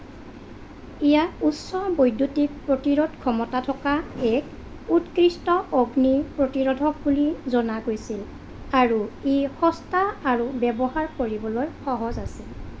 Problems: constant background noise